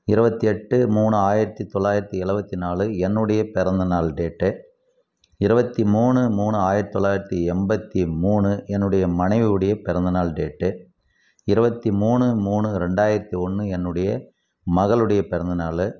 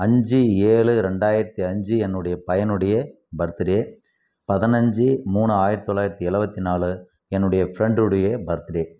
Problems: background sounds at intervals